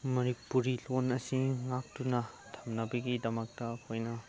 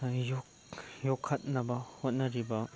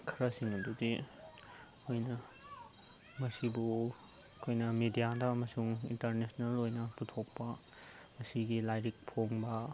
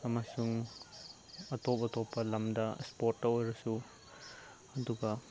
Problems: constant background noise, low volume